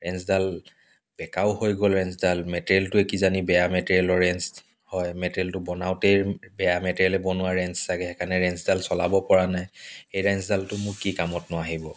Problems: background sounds at intervals